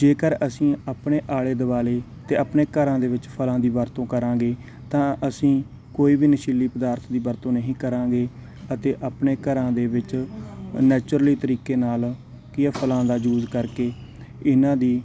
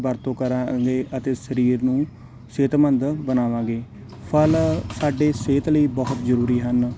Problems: none marked